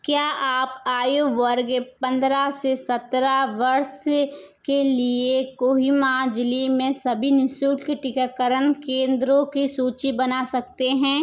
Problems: background sounds at intervals, echo